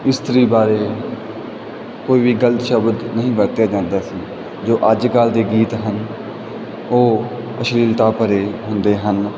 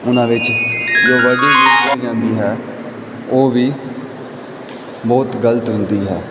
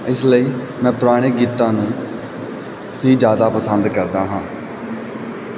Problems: background sounds at intervals